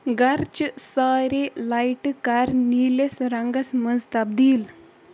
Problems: background sounds at intervals